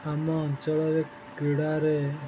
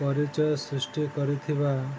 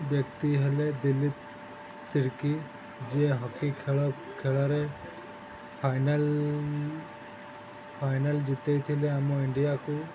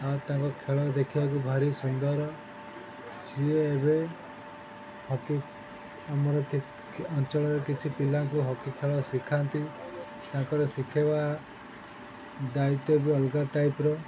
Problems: constant background noise